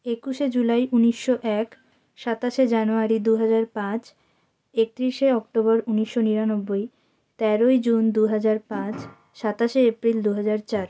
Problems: background sounds at intervals